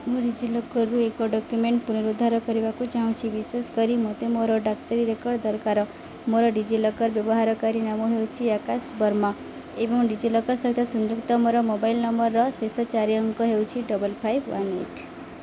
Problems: constant background noise